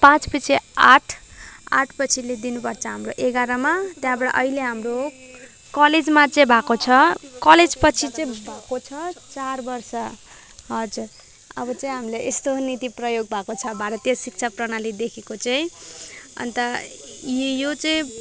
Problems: none marked